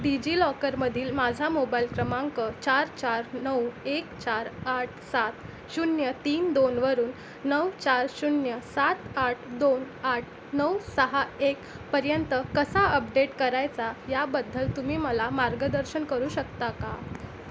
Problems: constant background noise, continuous background conversations